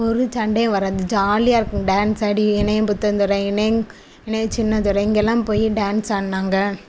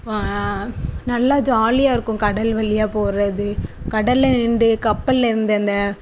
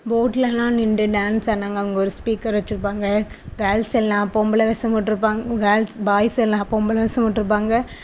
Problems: none marked